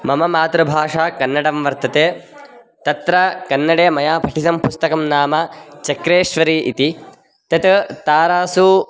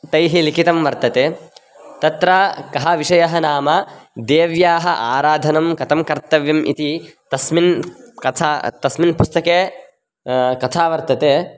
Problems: background conversations at intervals